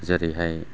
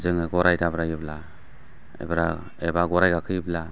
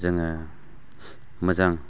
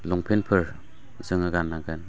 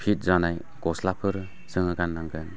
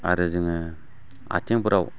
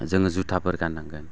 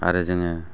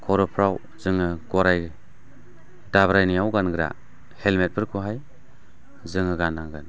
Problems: constant background noise